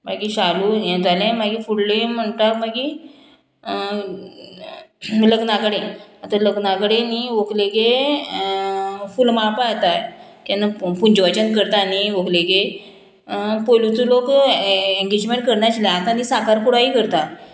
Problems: none marked